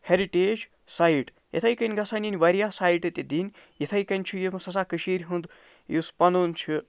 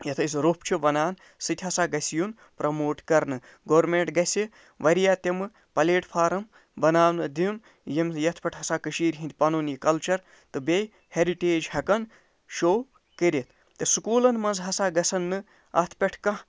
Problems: none marked